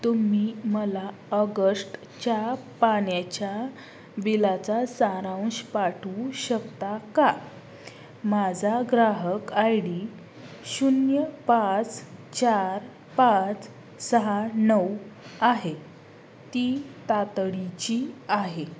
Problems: constant background noise